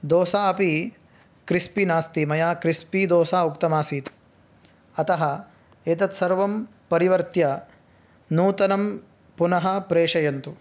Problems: none marked